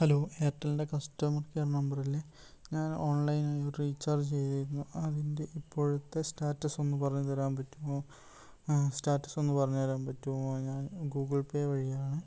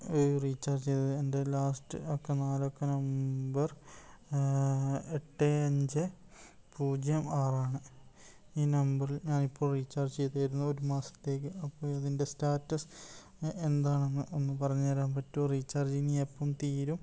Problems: low volume